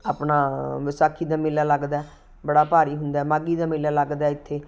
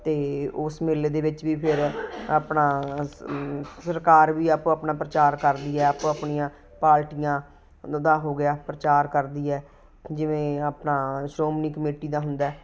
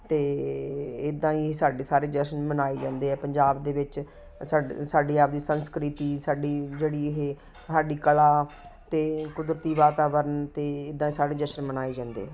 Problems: constant background noise